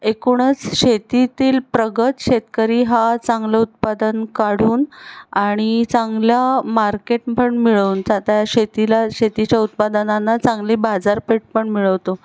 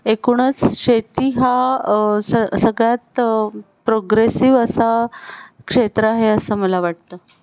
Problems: none marked